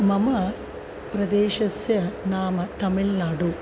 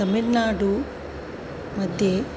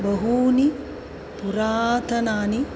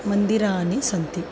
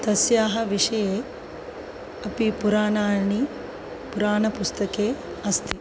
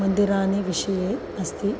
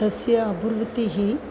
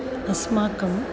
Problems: background sounds at intervals